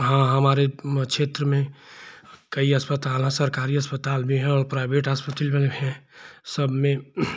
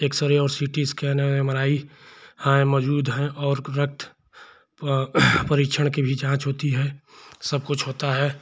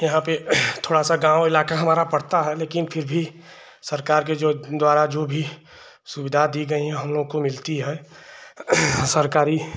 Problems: none marked